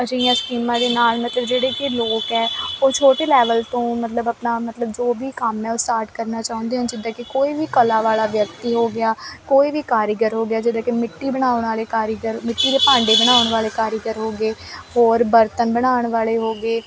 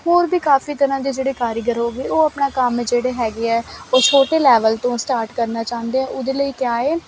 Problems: constant background noise